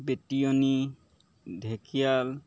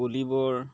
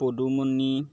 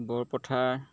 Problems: background sounds at intervals